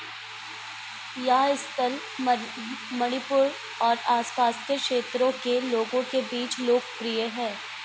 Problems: none marked